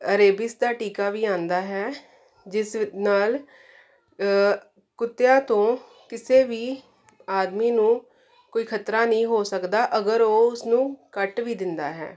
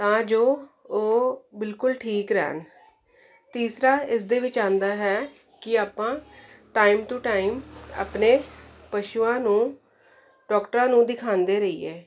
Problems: constant background noise